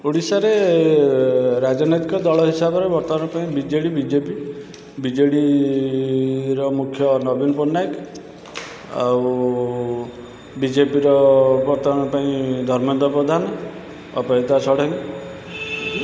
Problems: constant background noise